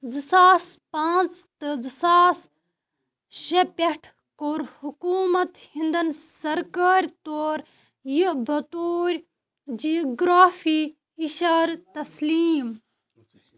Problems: none marked